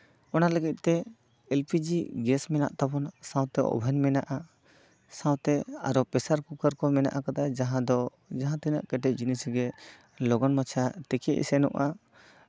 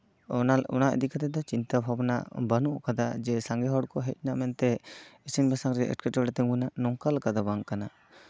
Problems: none marked